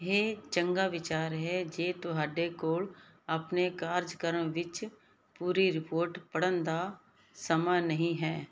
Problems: constant background noise